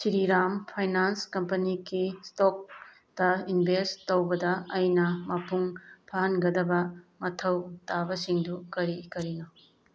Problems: background sounds at intervals